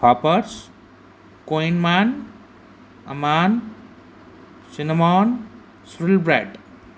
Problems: constant background noise